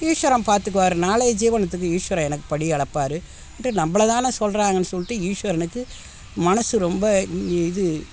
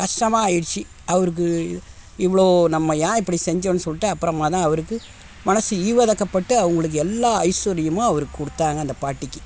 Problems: constant background noise